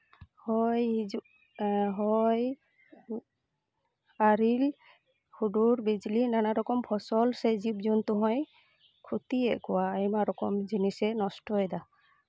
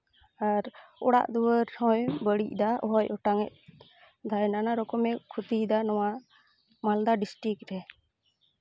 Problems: constant background noise